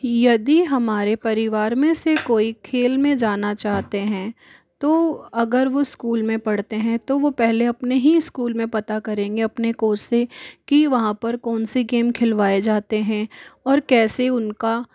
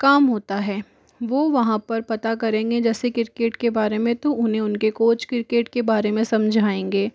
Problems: background sounds at intervals